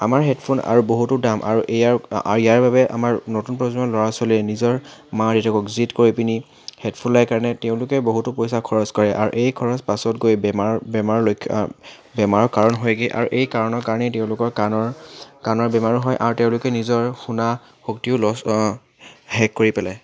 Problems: background sounds at intervals